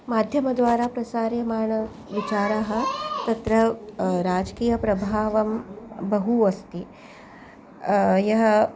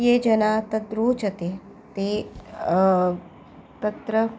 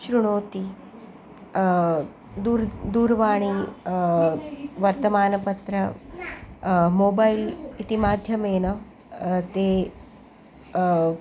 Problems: background sounds at intervals